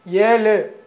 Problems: none marked